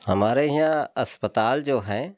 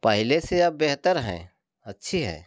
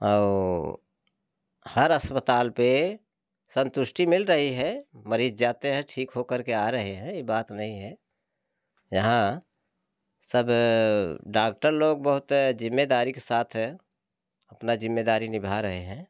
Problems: none marked